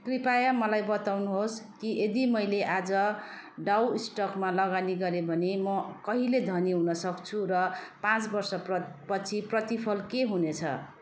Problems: continuous background conversations